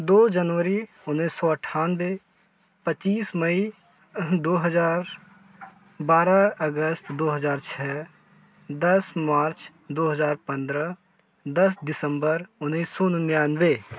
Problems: constant background noise